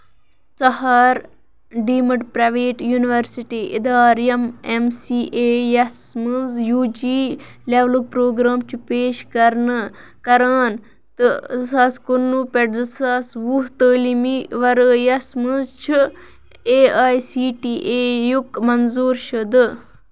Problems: background sounds at intervals